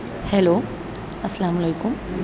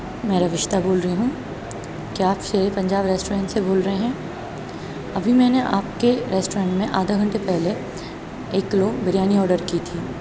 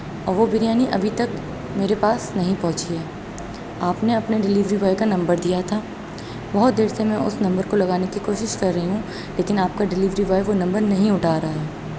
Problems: none marked